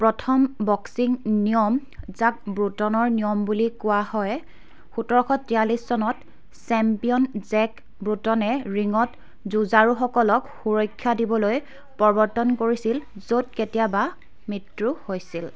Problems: continuous background conversations